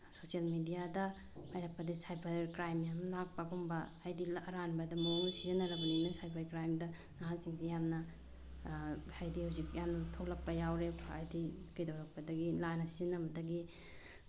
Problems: low volume